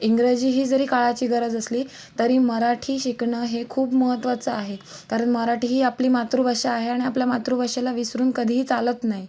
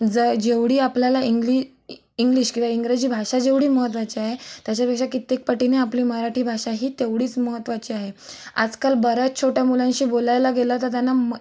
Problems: constant background noise